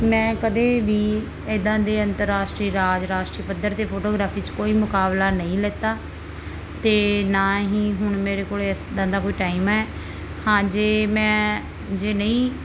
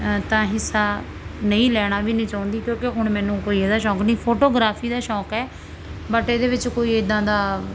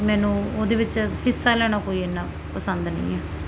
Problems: background sounds at intervals